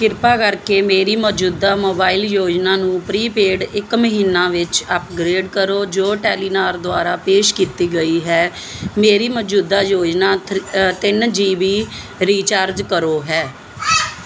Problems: background sounds at intervals